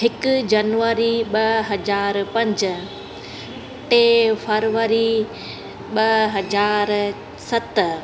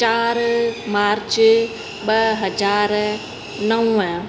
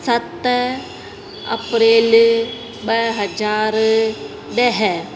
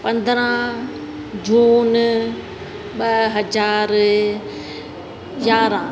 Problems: constant background noise, echo